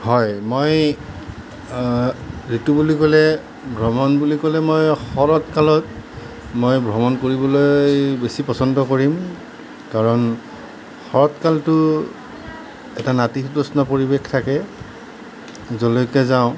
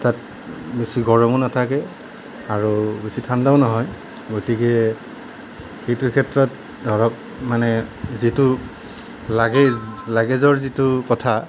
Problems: none marked